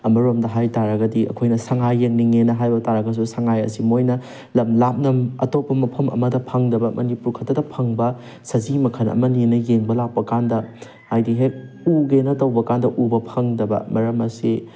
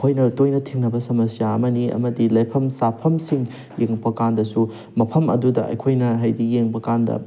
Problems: background sounds at intervals